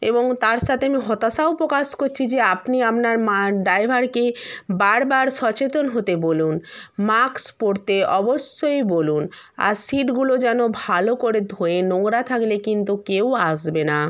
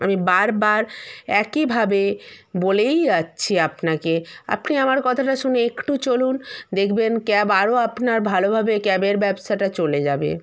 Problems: background sounds at intervals